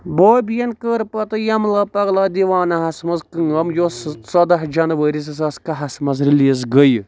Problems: none marked